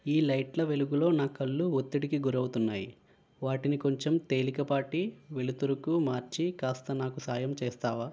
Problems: constant background noise